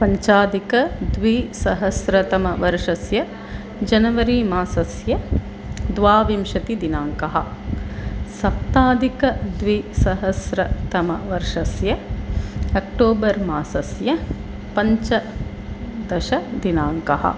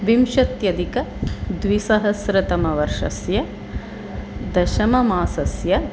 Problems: constant background noise